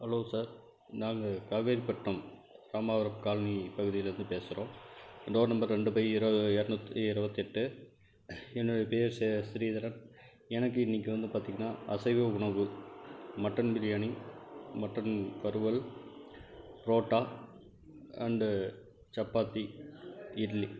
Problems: background sounds at intervals